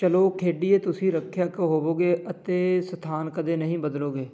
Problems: none marked